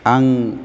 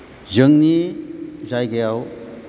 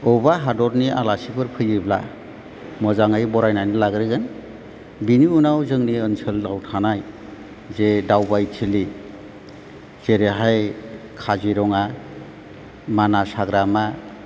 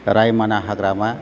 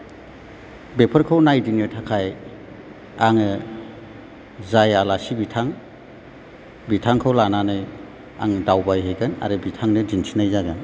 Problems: background sounds at intervals